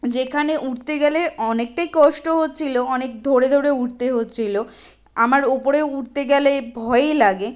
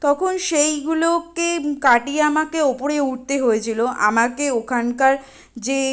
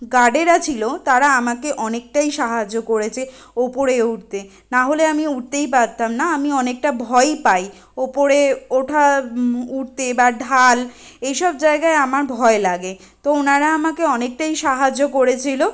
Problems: constant background noise